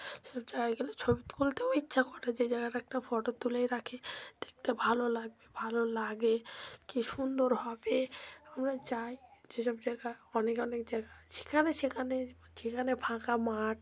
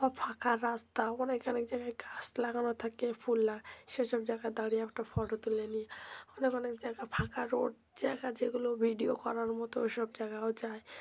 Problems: none marked